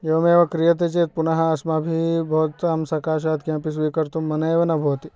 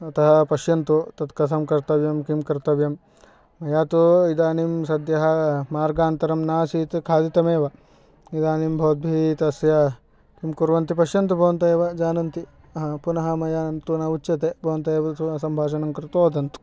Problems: none marked